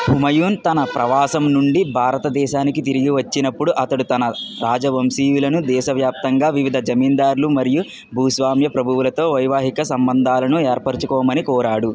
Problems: background sounds at intervals